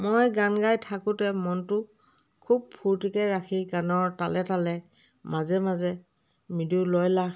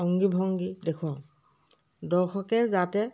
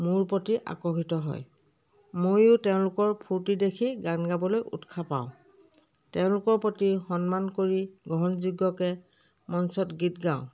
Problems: background conversations at intervals